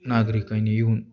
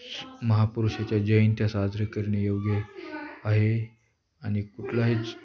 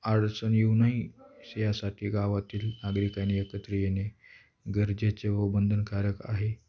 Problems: background sounds at intervals